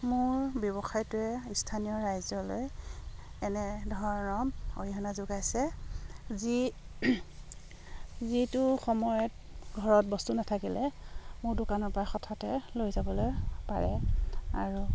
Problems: none marked